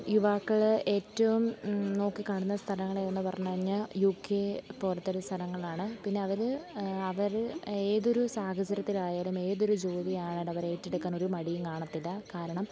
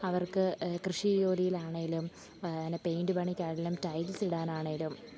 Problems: background sounds at intervals, low volume